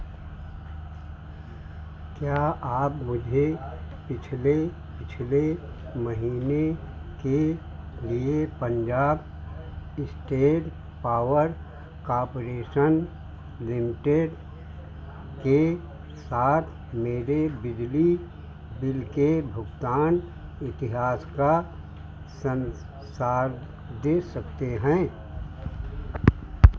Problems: constant background noise